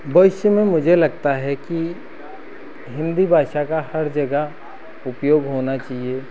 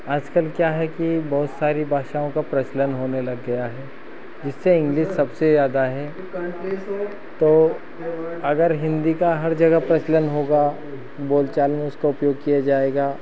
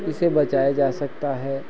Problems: none marked